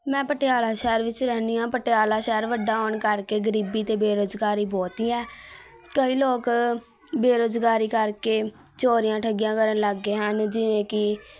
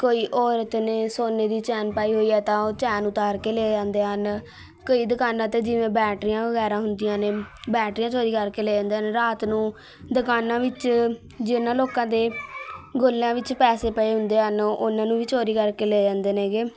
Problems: constant background noise